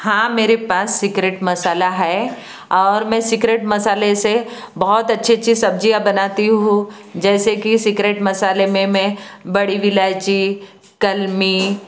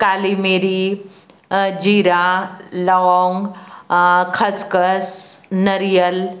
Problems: constant background noise